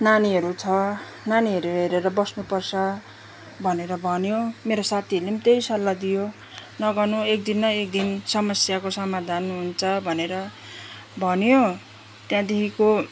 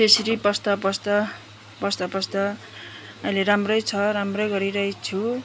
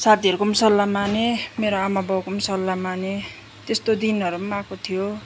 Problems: background sounds at intervals